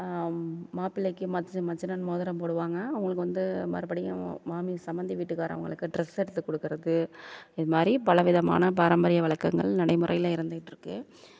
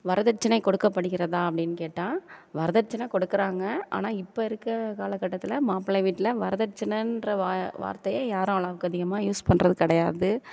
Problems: none marked